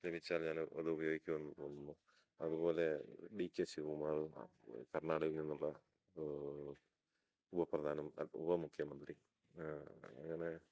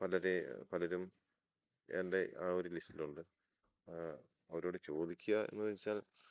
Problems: none marked